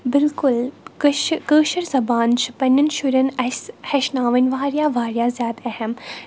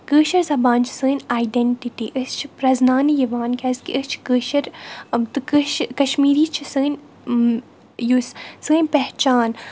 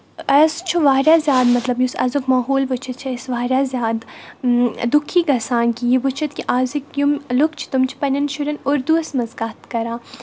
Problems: none marked